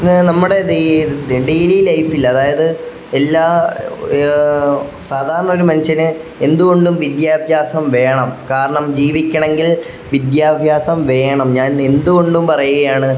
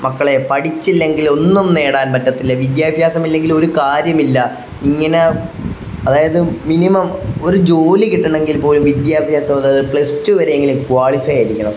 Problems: none marked